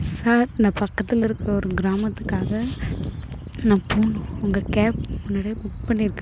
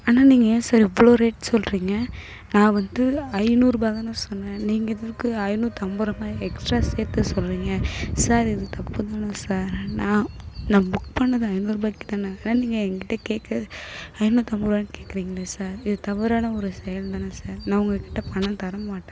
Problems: background sounds at intervals